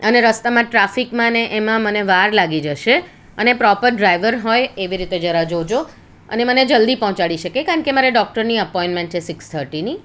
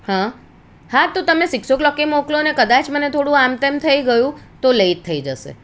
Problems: none marked